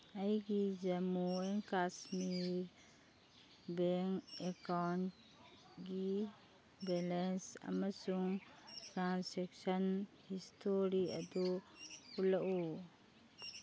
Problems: background sounds at intervals